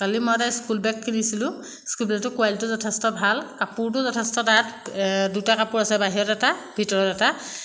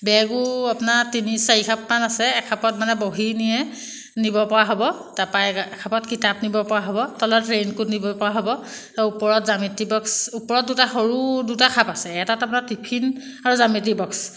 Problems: constant background noise